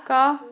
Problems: background sounds at intervals, background conversations at intervals